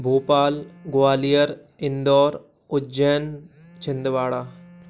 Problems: constant background noise